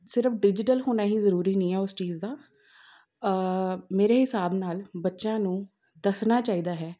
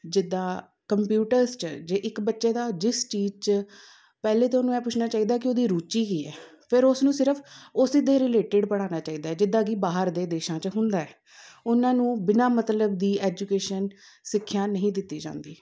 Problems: none marked